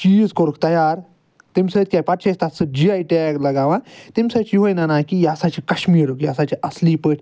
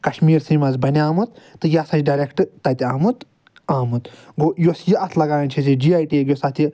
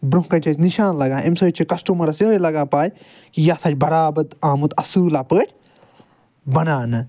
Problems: none marked